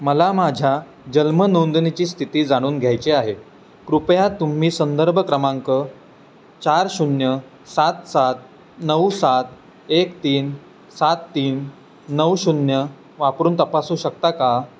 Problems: constant background noise